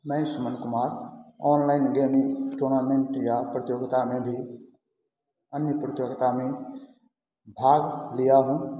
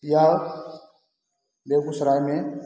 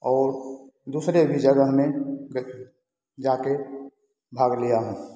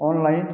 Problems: constant background noise